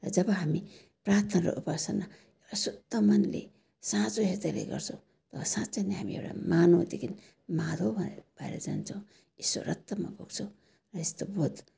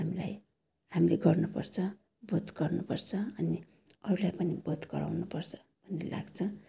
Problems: none marked